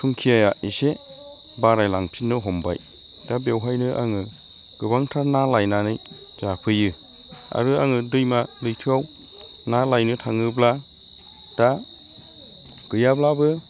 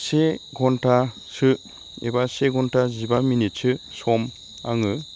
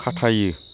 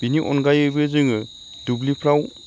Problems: constant background noise